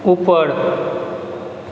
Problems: constant background noise